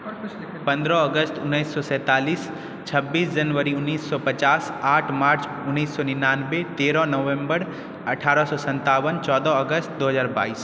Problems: background conversations at intervals